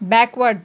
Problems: constant background noise